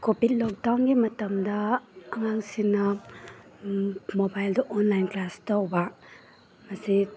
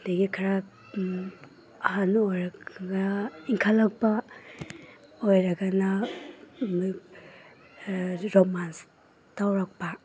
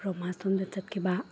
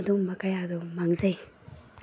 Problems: background sounds at intervals